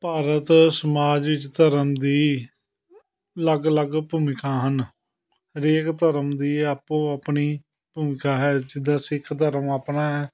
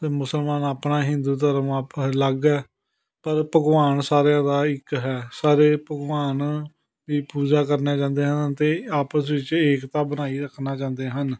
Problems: continuous background conversations